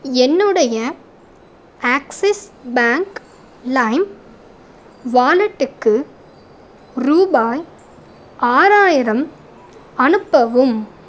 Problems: none marked